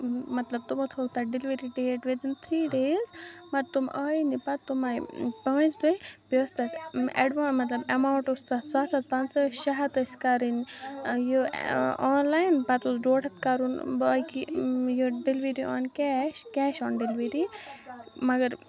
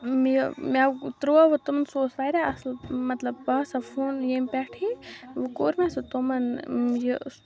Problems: background sounds at intervals